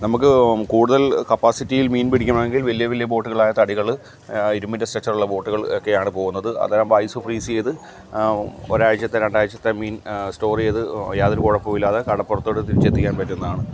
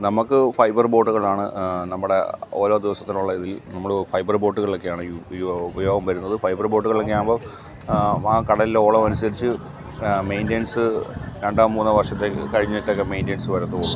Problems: background sounds at intervals